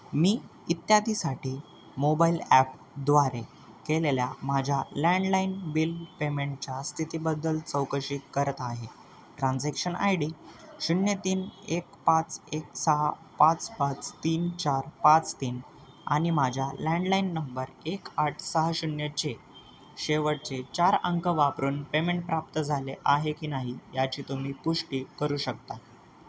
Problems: constant background noise